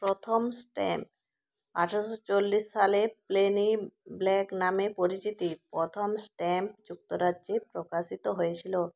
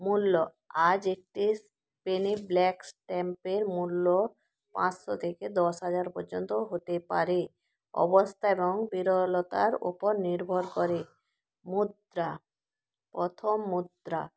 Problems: background sounds at intervals